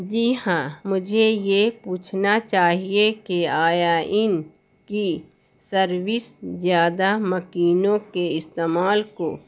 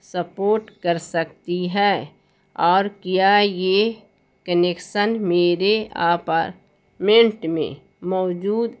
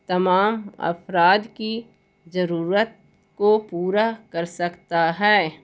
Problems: constant background noise